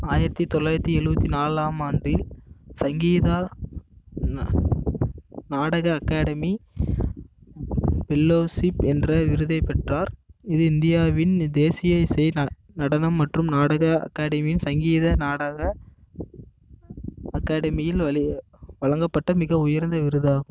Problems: constant background noise